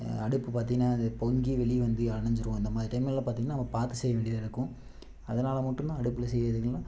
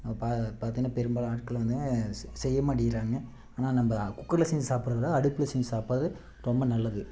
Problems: constant background noise